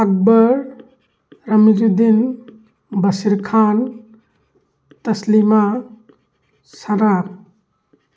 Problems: background sounds at intervals